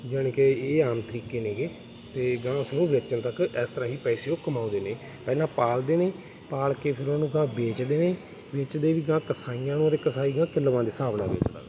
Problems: constant background noise